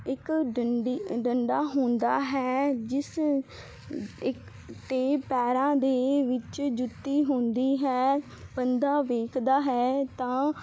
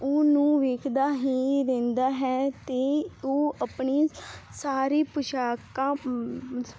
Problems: none marked